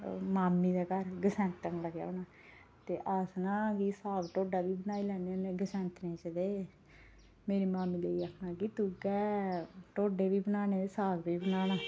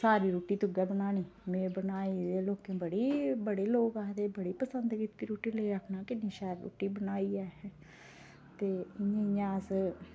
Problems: none marked